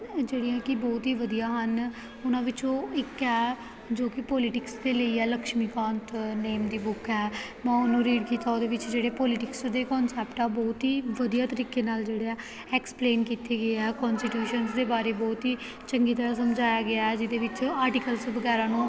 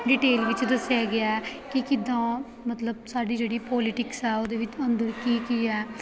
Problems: background sounds at intervals